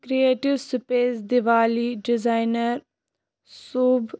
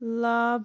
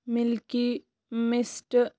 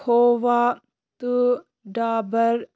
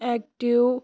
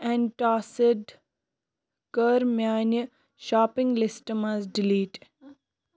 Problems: constant background noise